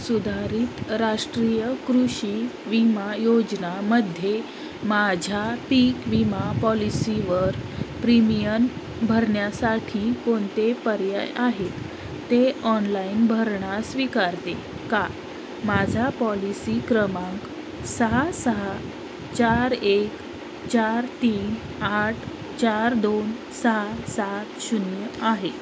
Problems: constant background noise